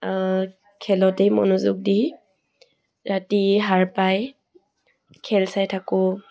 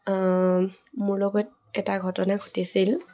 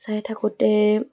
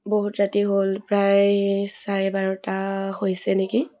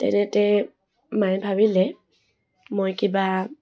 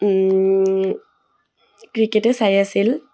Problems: none marked